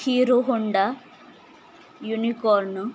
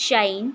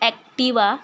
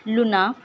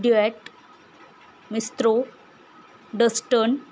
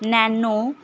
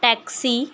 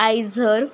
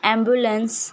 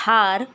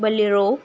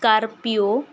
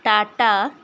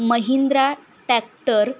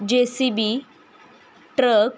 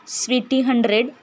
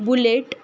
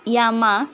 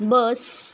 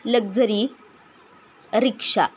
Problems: constant background noise